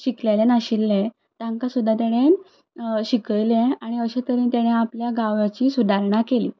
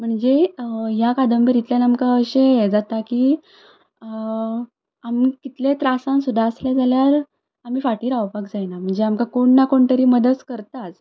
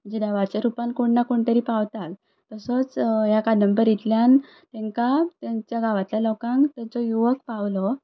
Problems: none marked